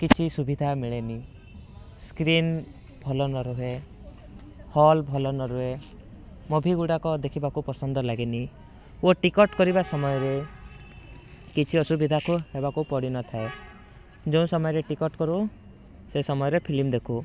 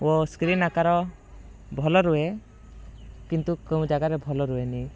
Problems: constant background noise